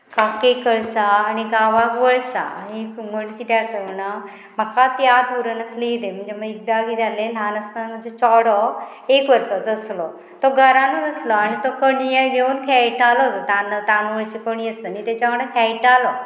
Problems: constant background noise